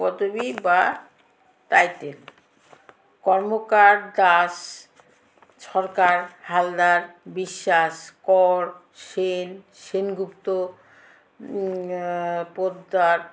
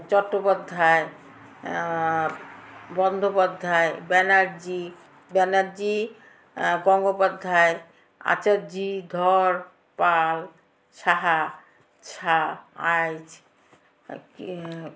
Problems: constant background noise, background conversations at intervals